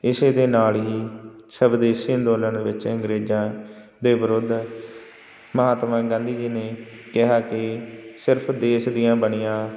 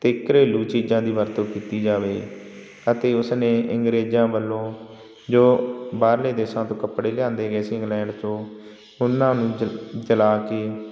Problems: constant background noise